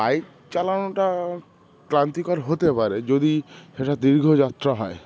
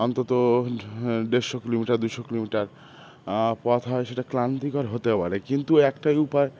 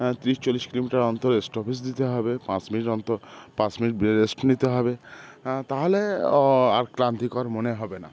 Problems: constant background noise